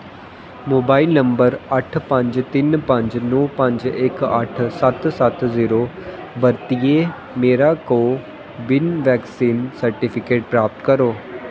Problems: constant background noise, echo